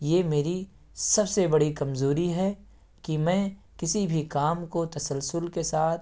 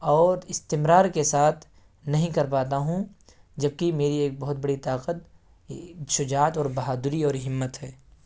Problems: none marked